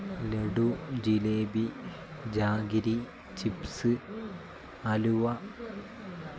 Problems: constant background noise